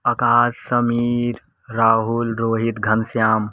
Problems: none marked